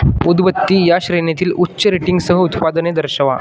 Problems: constant background noise